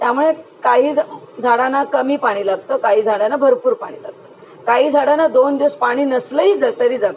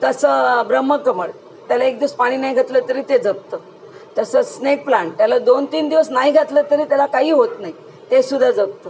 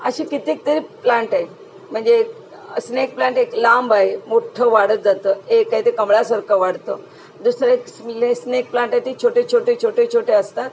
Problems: constant background noise